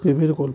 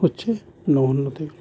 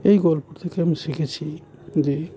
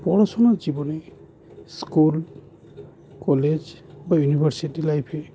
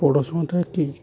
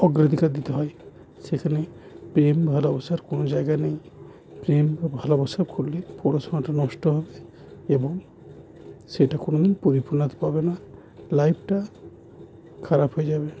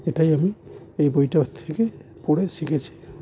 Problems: constant background noise